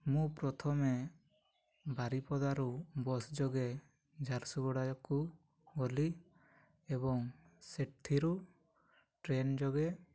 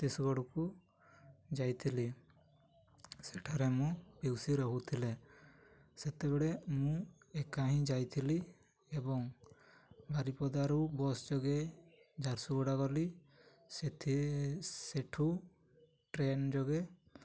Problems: none marked